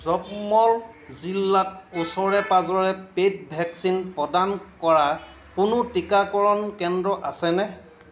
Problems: constant background noise, background conversations at intervals